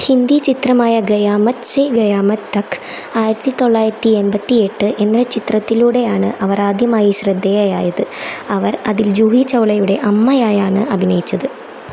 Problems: constant background noise